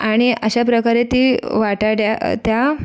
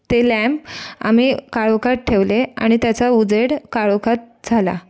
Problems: background sounds at intervals, continuous background conversations